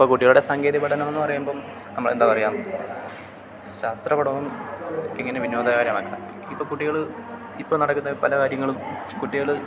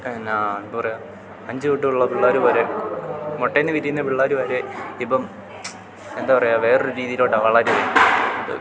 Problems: constant background noise